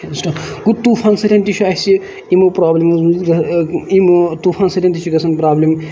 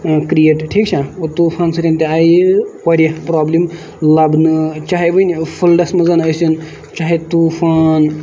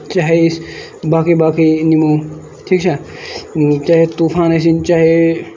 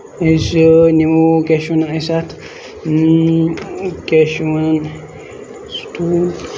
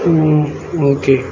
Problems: constant background noise